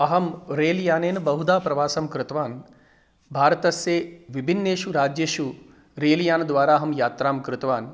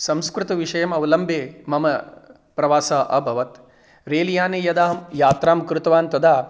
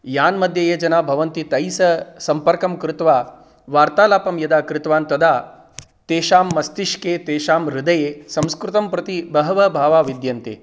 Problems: none marked